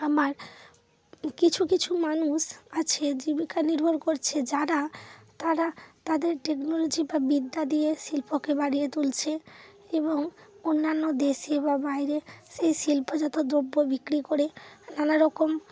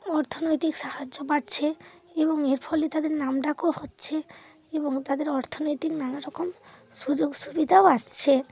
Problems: constant background noise